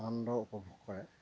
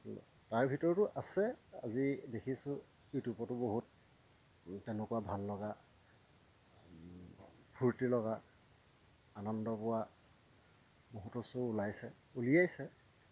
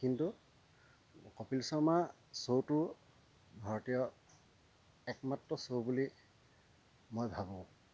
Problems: none marked